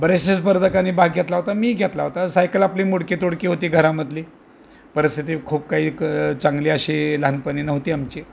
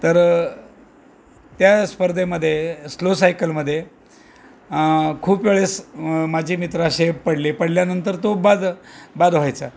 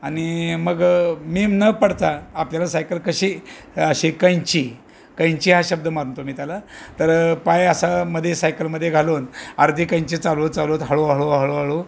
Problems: constant background noise, background conversations at intervals